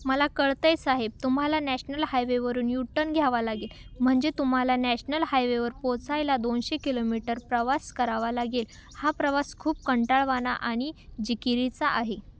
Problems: none marked